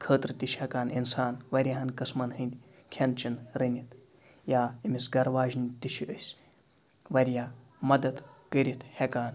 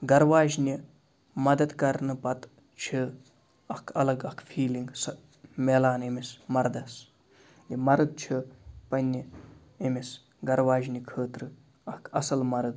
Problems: background sounds at intervals